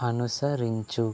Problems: low volume